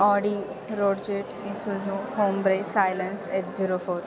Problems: constant background noise